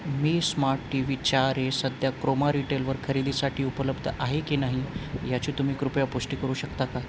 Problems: none marked